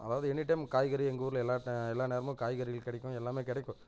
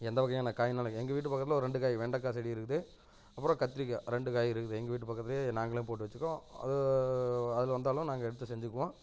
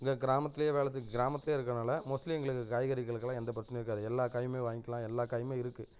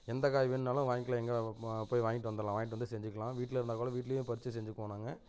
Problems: constant background noise, low volume